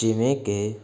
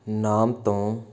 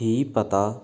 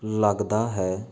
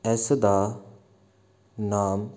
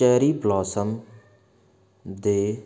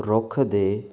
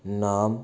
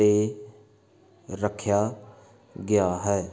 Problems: background sounds at intervals